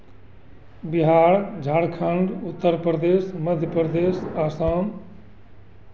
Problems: constant background noise